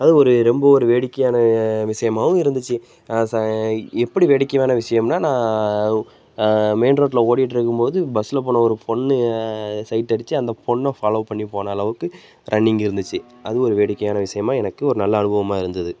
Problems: background sounds at intervals